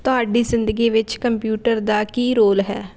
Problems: none marked